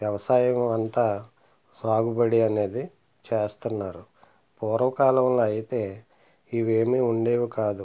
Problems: none marked